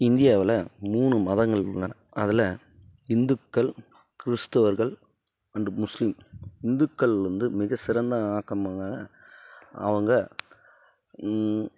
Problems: none marked